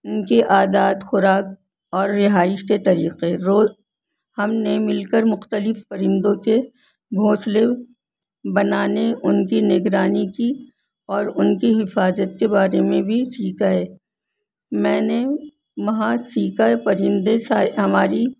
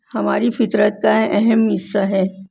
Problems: none marked